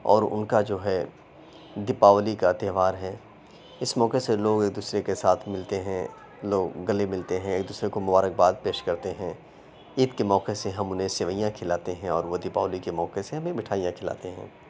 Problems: background sounds at intervals